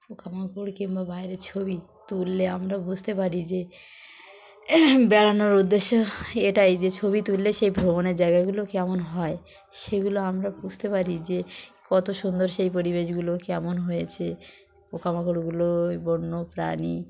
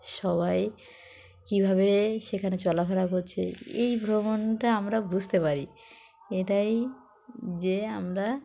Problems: constant background noise, background conversations at intervals